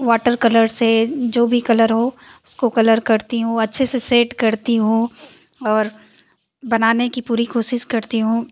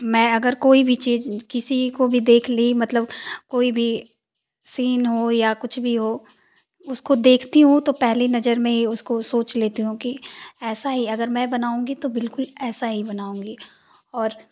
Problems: constant background noise